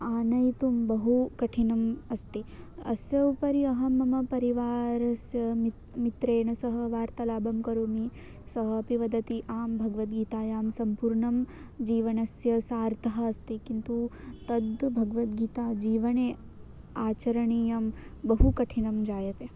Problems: constant background noise